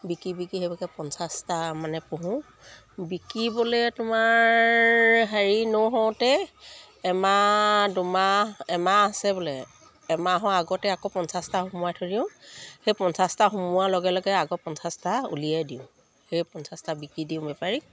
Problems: none marked